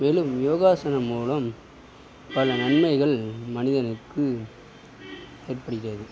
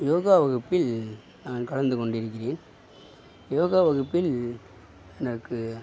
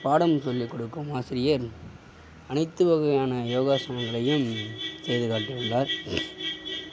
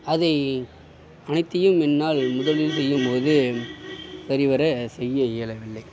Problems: constant background noise